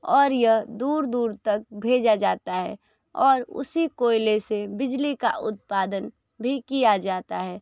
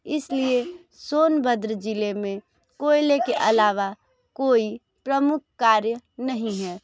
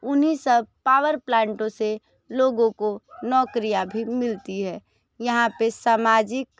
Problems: none marked